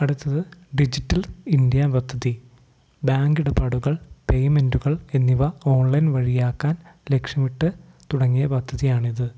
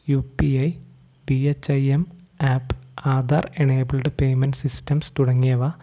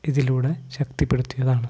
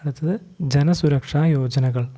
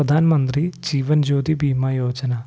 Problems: none marked